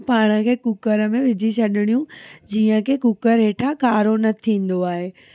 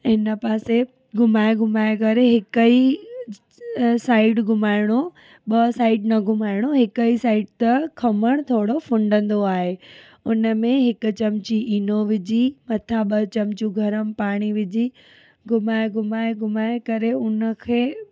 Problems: none marked